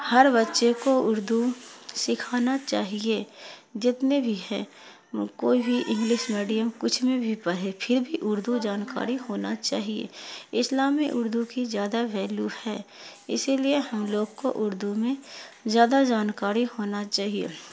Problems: constant background noise